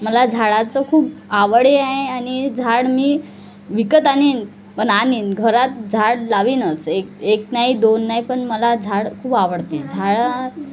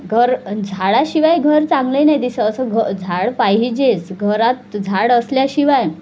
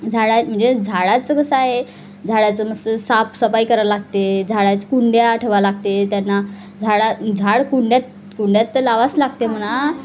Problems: constant background noise, background conversations at intervals